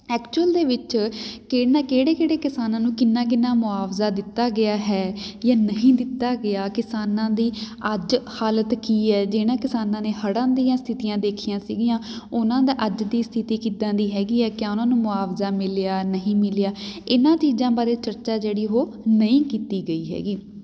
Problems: none marked